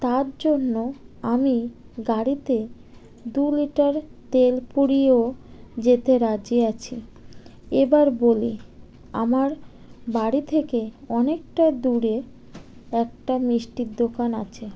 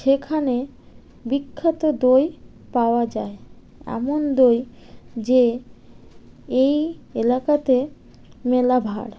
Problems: none marked